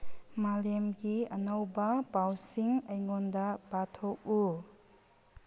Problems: none marked